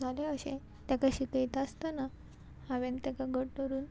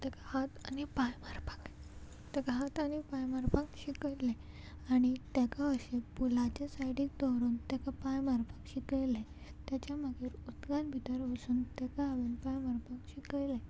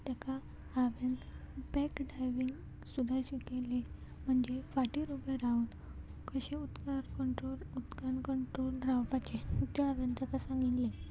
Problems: constant background noise, background conversations at intervals